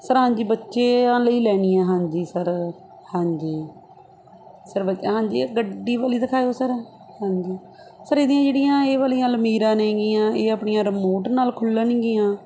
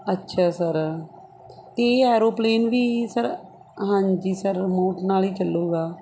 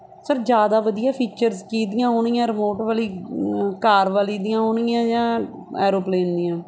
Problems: none marked